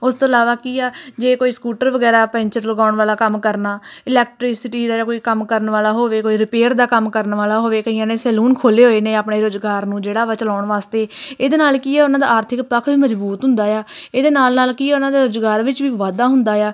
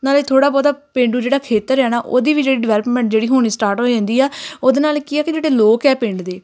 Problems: none marked